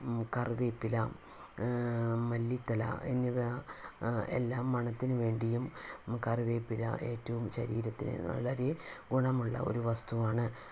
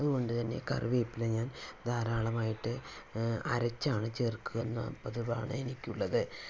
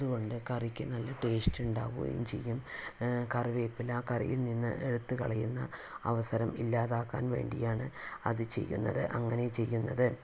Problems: low volume